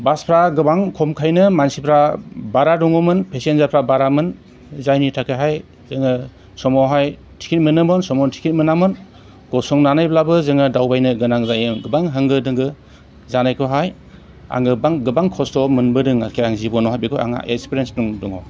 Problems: none marked